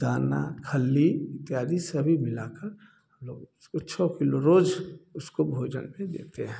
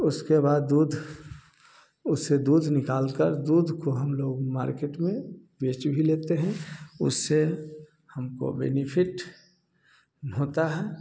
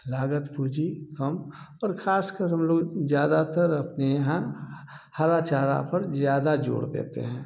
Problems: constant background noise